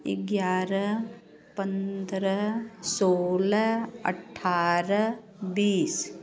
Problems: none marked